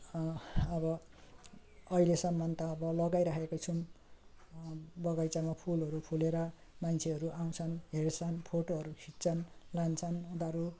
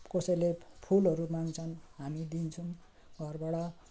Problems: constant background noise, low volume